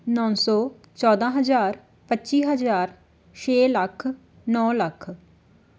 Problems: background sounds at intervals